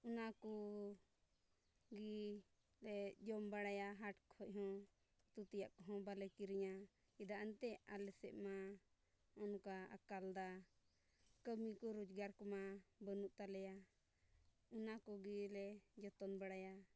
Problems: low volume